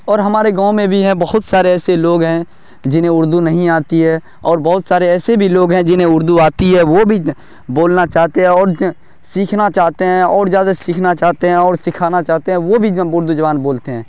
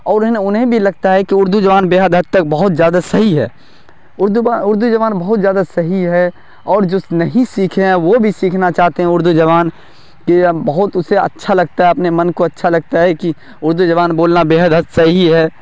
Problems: none marked